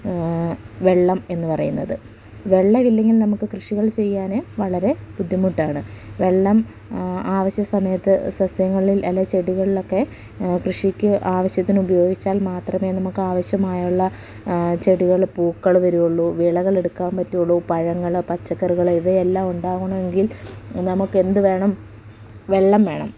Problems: none marked